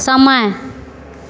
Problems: none marked